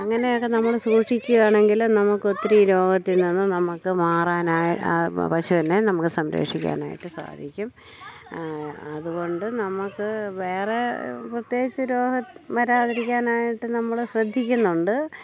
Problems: none marked